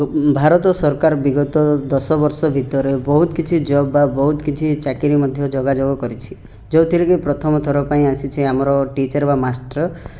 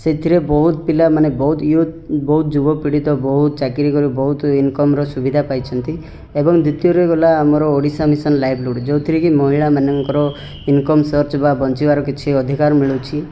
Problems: background sounds at intervals, background conversations at intervals